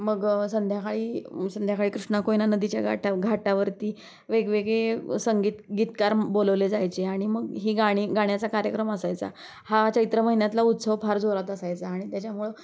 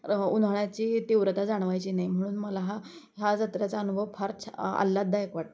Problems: constant background noise